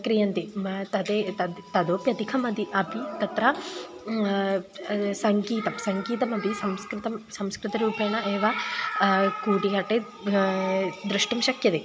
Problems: constant background noise, continuous background conversations